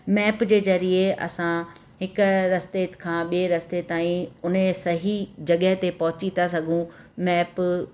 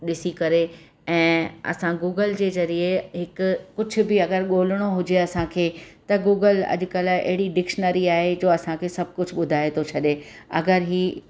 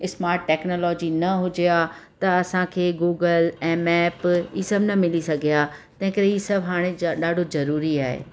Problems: constant background noise, echo